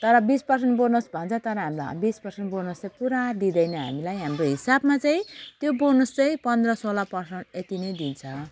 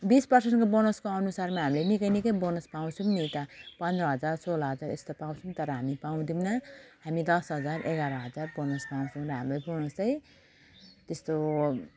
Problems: constant background noise